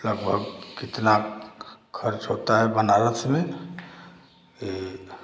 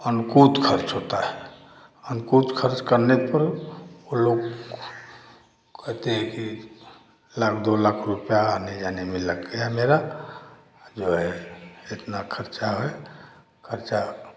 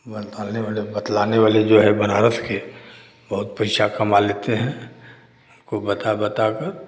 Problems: background sounds at intervals